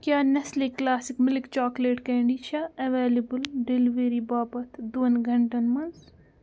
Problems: none marked